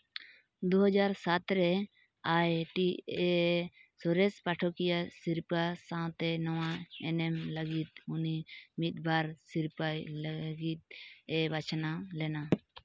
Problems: background sounds at intervals